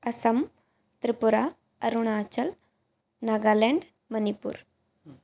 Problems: none marked